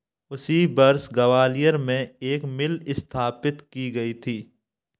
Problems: background sounds at intervals